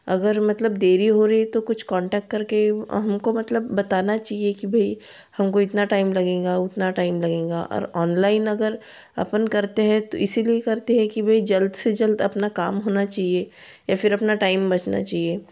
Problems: constant background noise